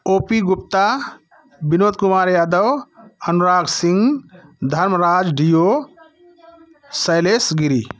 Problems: background sounds at intervals